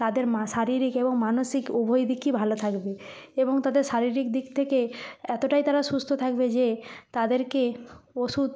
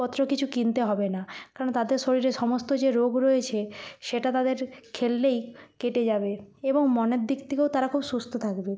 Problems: constant background noise, background conversations at intervals